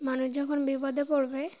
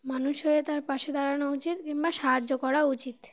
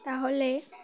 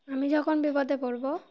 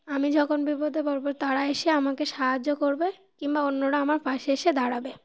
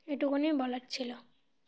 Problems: constant background noise